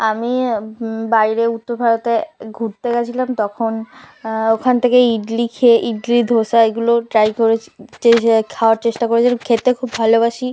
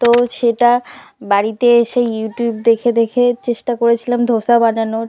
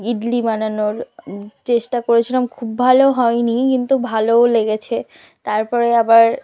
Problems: background conversations at intervals